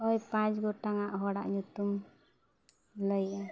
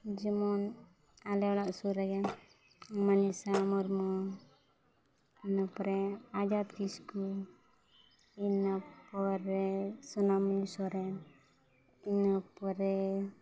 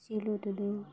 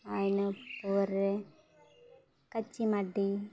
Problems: none marked